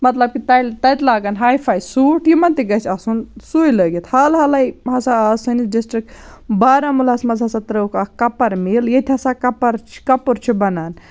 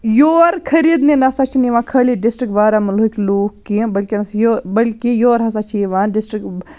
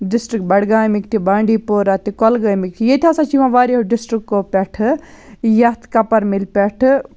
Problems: none marked